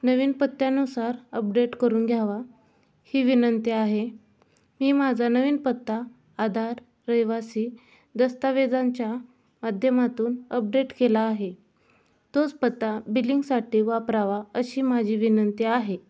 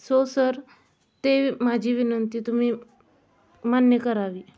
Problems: constant background noise, background conversations at intervals